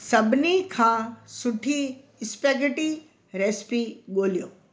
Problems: constant background noise